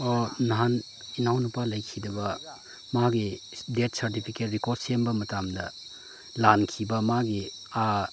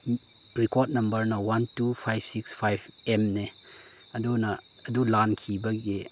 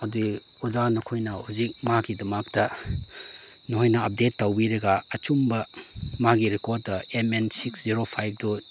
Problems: none marked